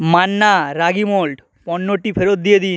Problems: constant background noise